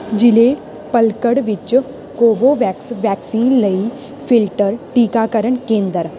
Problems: constant background noise